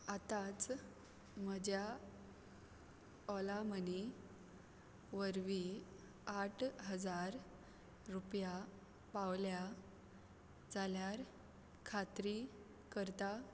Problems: background sounds at intervals